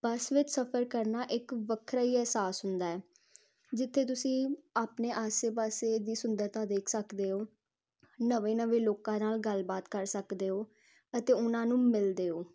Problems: constant background noise